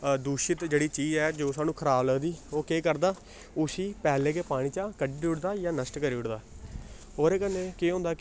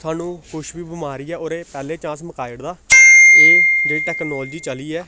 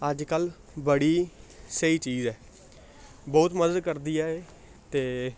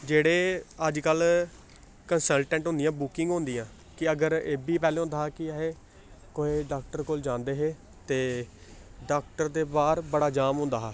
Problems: constant background noise